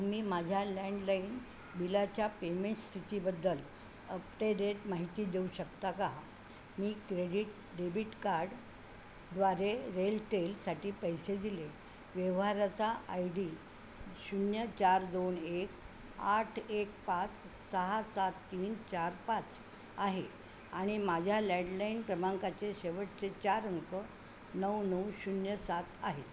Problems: constant background noise